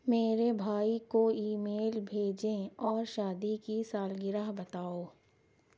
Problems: none marked